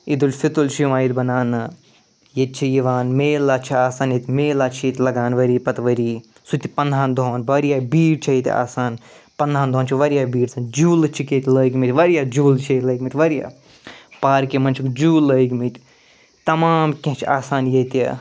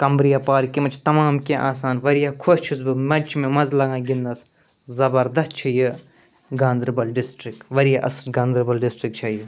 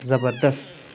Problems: none marked